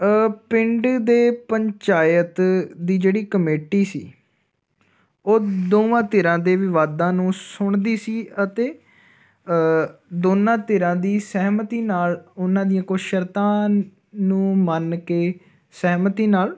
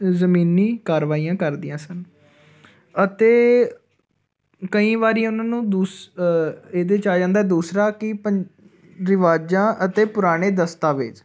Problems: none marked